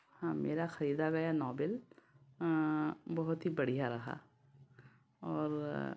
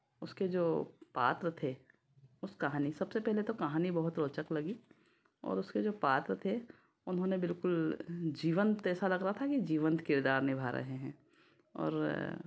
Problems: none marked